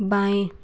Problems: constant background noise